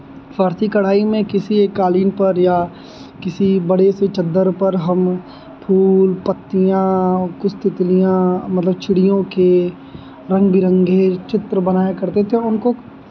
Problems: none marked